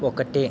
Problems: constant background noise